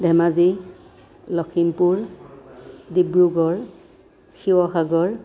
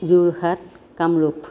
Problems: background conversations at intervals